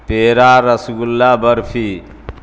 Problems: constant background noise